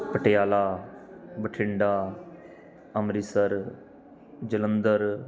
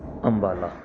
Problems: background sounds at intervals